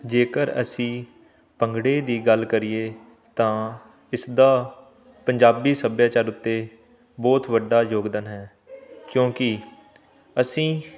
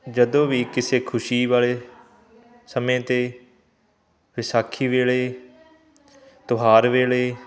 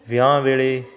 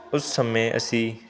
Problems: continuous background conversations